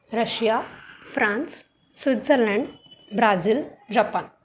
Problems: constant background noise